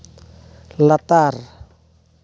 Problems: constant background noise